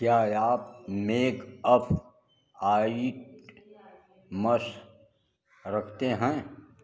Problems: background sounds at intervals